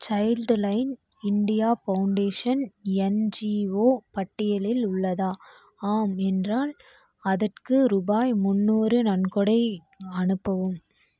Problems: constant background noise